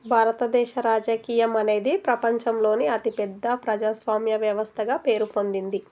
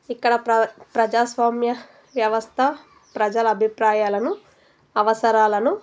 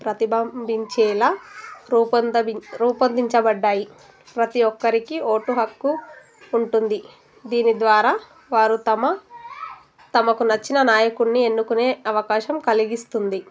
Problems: constant background noise